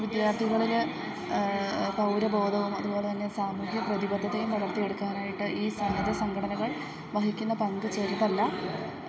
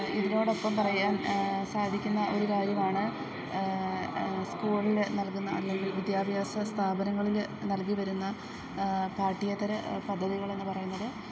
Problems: background sounds at intervals, low volume